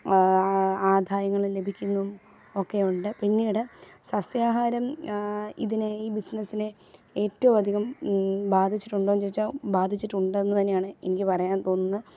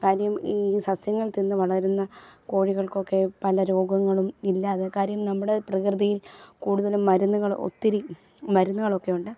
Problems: background sounds at intervals